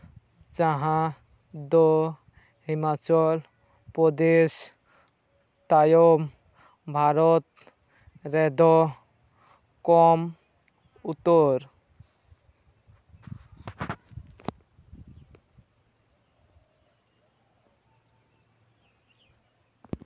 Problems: constant background noise, background conversations at intervals